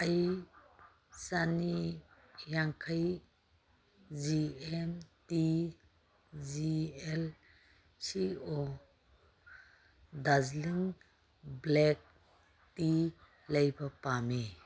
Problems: background sounds at intervals